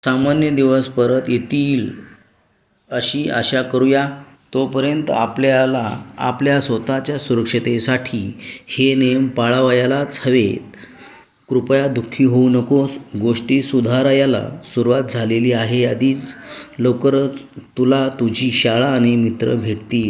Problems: background sounds at intervals, background conversations at intervals